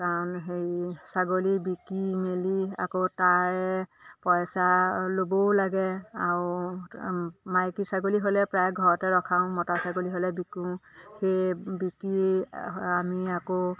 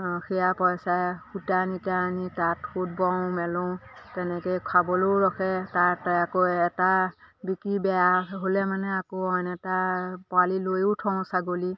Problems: constant background noise, background conversations at intervals